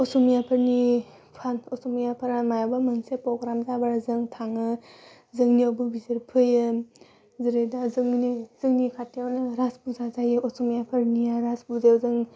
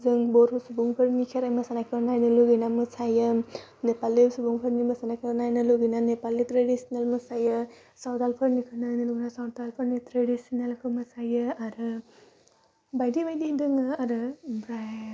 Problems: none marked